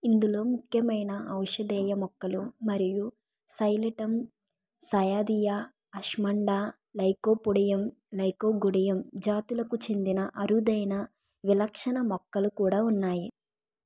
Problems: none marked